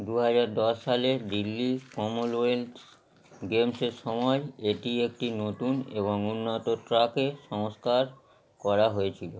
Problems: constant background noise